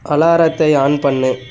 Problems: constant background noise